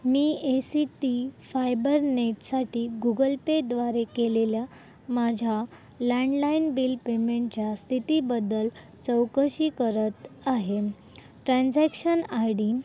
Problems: none marked